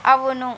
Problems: constant background noise